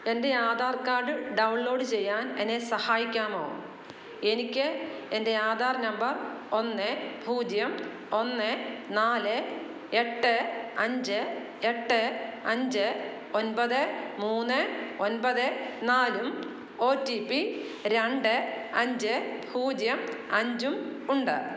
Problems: none marked